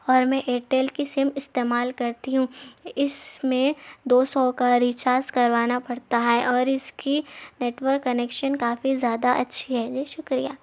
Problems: none marked